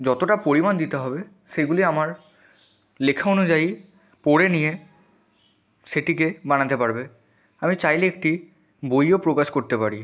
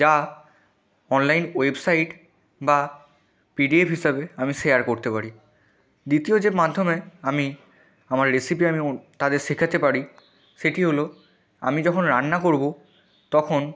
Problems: none marked